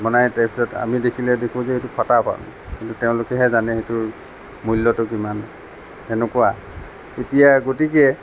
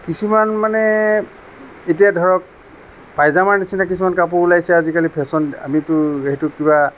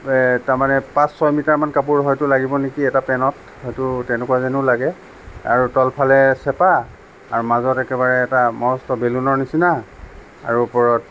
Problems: none marked